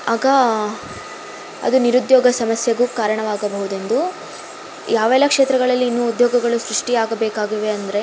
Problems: constant background noise